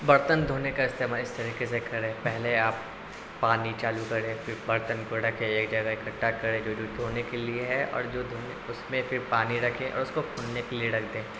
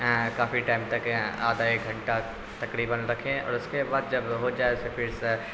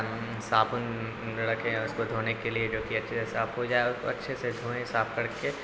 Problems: constant background noise